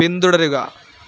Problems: constant background noise